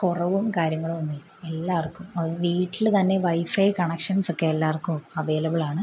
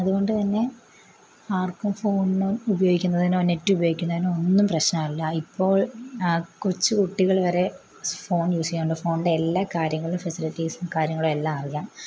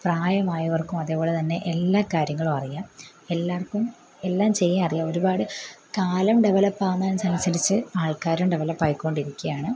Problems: background sounds at intervals